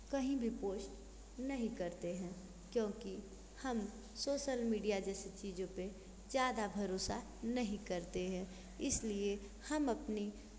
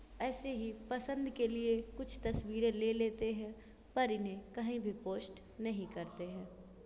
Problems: constant background noise